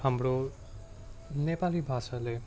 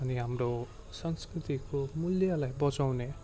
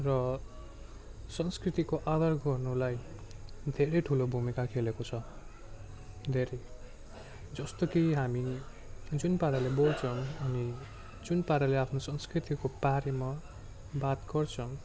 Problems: none marked